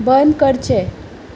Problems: none marked